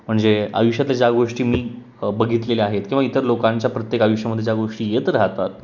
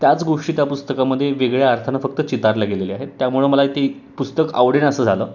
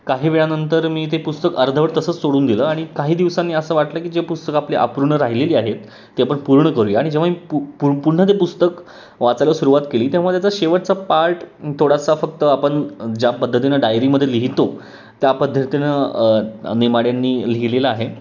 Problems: background sounds at intervals